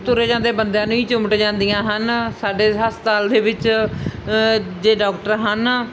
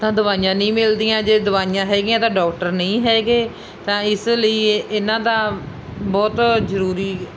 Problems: constant background noise